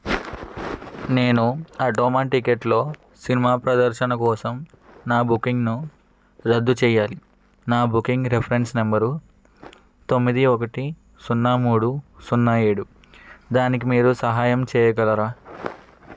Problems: background sounds at intervals